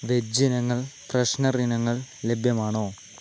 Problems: constant background noise, low volume